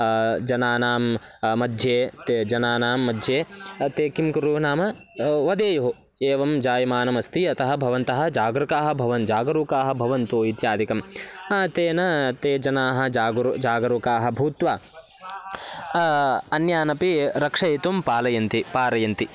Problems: none marked